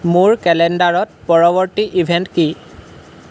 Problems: none marked